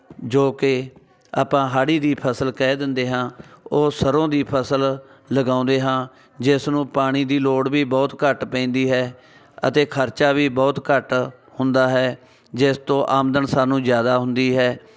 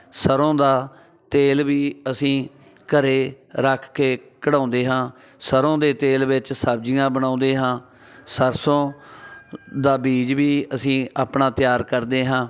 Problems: constant background noise